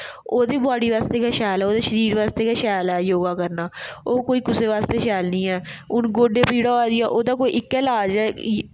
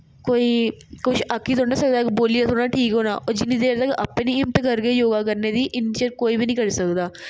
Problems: none marked